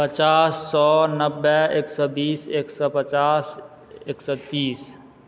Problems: none marked